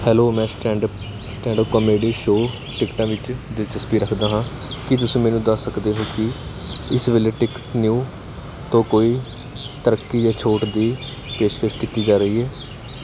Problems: none marked